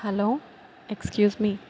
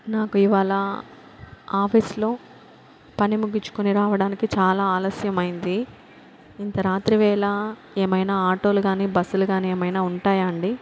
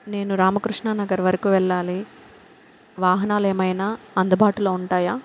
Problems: constant background noise